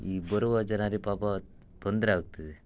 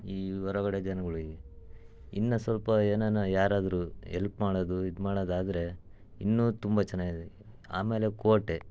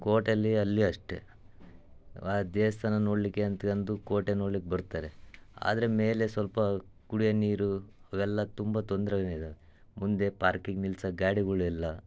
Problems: none marked